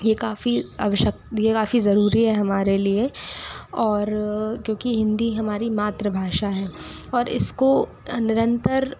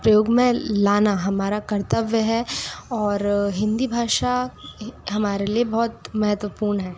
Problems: none marked